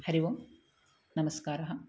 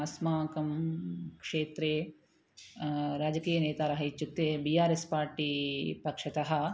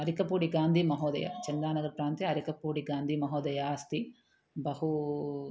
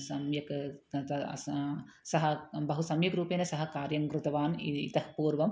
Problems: none marked